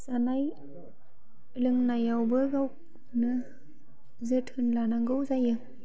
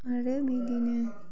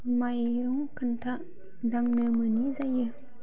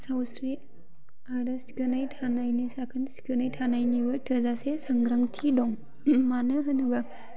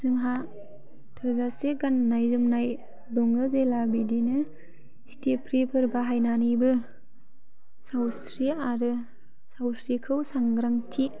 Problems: constant background noise